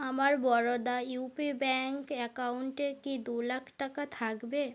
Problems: background sounds at intervals